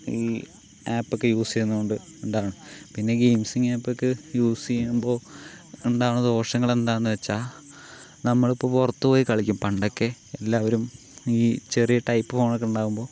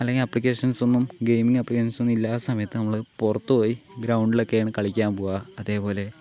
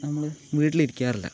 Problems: none marked